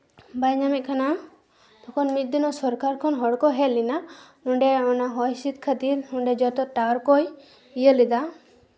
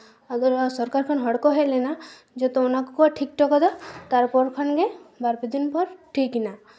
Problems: none marked